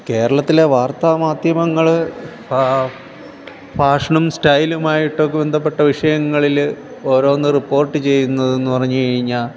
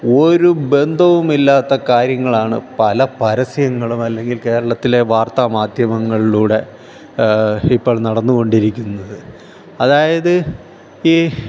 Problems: none marked